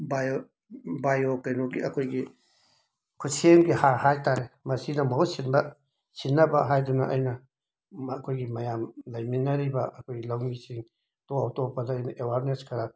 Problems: background sounds at intervals